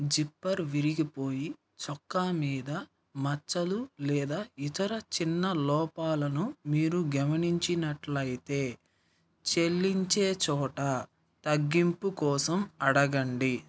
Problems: none marked